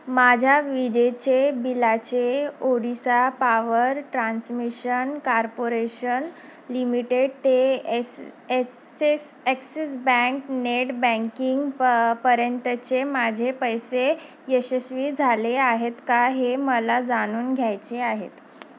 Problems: constant background noise